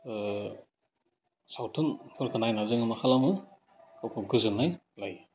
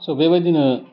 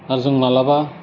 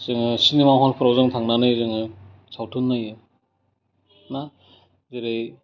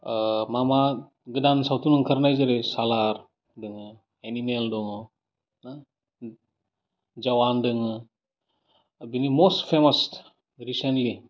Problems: none marked